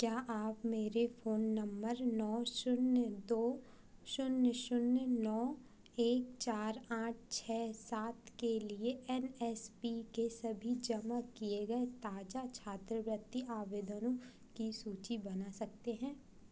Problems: none marked